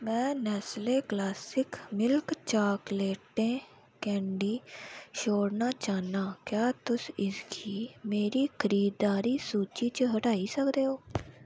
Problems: none marked